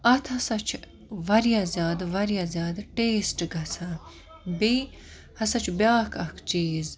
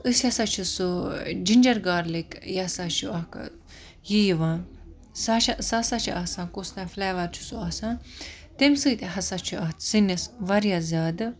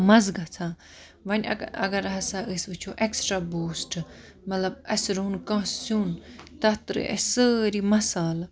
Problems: constant background noise